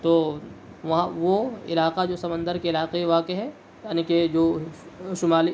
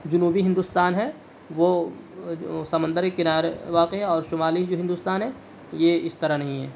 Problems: none marked